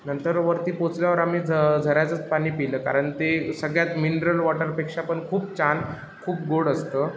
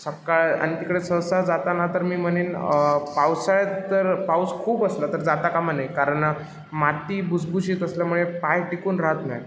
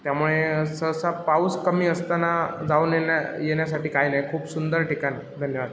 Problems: constant background noise, background conversations at intervals